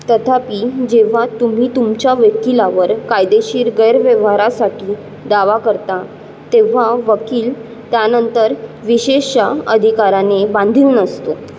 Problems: constant background noise